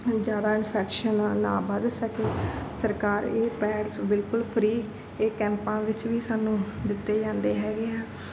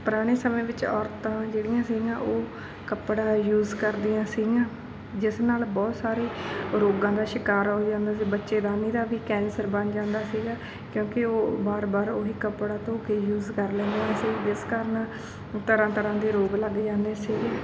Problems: background sounds at intervals